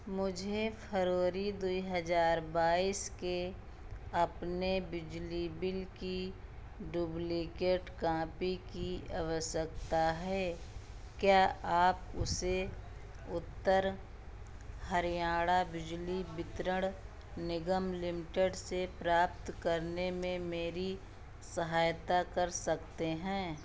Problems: constant background noise